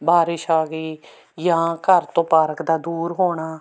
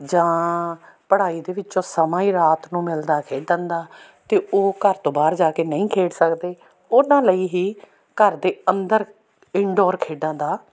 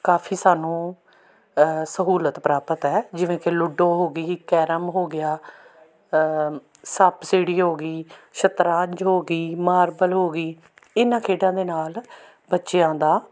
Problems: background sounds at intervals